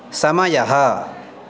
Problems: constant background noise